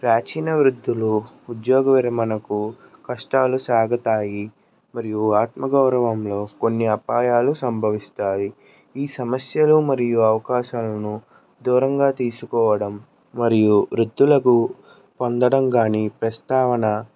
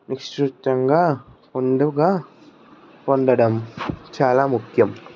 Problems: background conversations at intervals